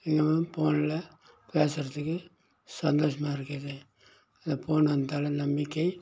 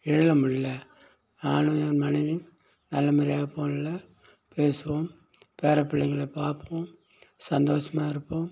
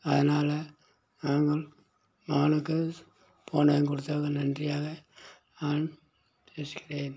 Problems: background sounds at intervals